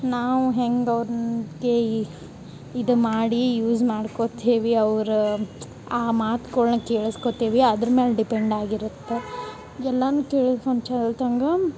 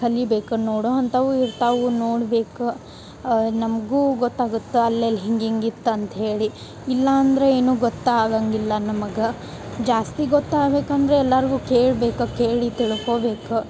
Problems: none marked